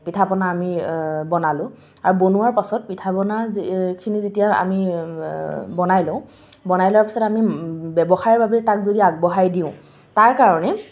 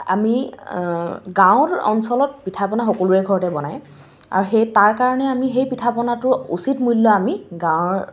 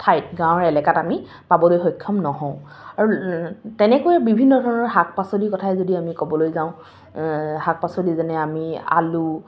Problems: none marked